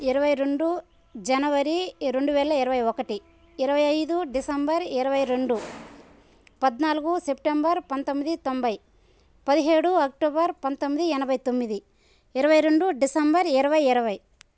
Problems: background sounds at intervals